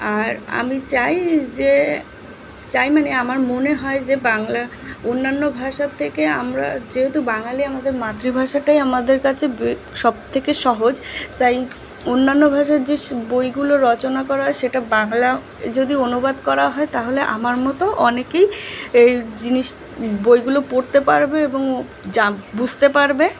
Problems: constant background noise